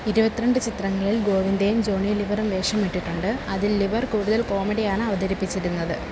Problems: constant background noise